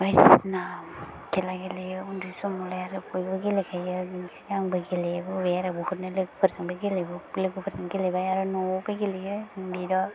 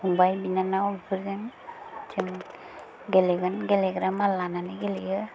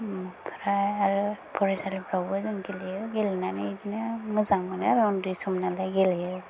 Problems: low volume